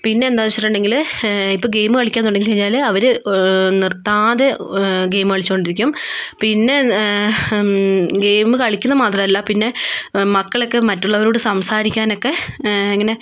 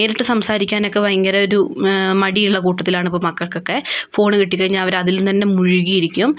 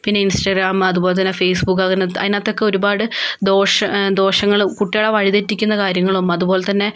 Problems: none marked